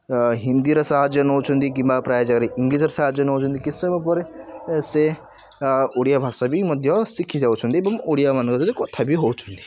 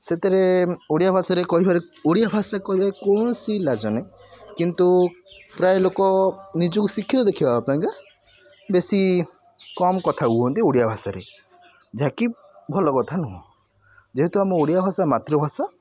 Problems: constant background noise, continuous background conversations